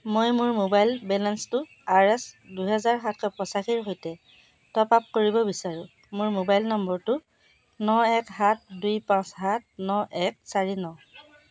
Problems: constant background noise, background conversations at intervals